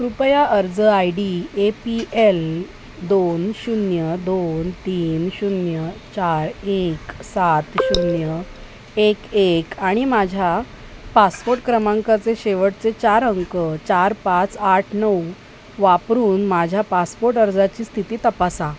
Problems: constant background noise